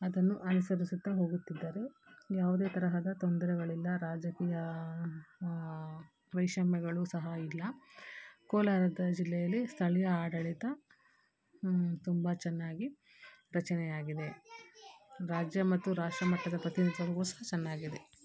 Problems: background sounds at intervals